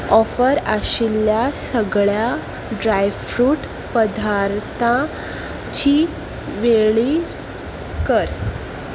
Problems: background sounds at intervals